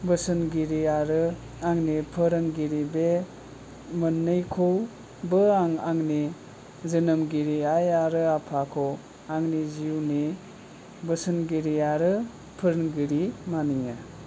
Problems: low volume